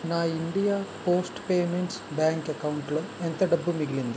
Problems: constant background noise